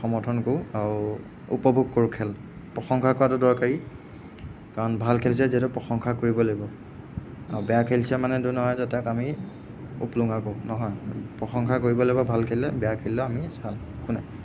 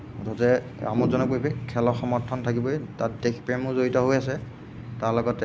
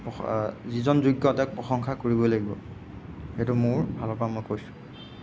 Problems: constant background noise